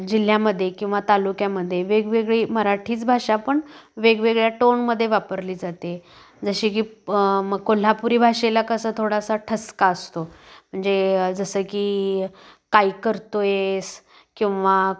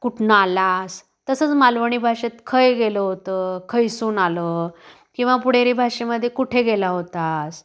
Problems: constant background noise, background conversations at intervals